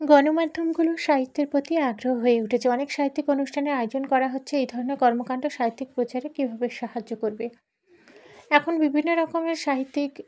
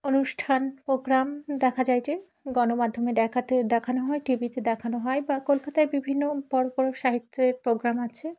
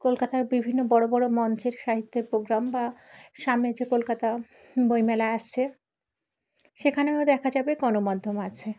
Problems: background sounds at intervals